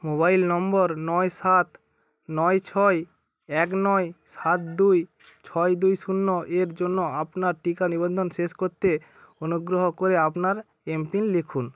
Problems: none marked